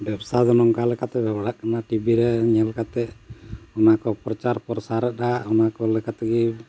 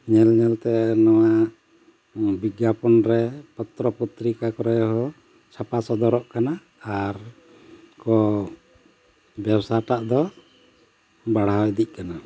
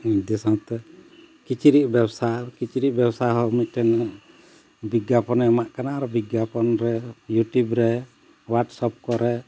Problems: constant background noise